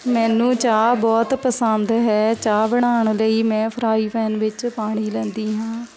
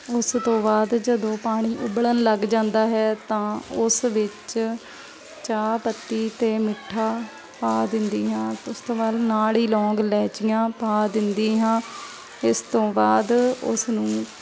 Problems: constant background noise, continuous background conversations